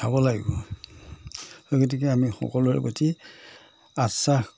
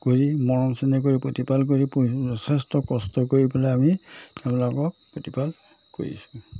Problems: none marked